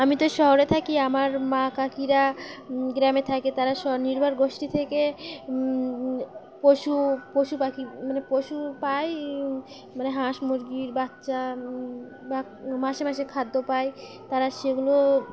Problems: constant background noise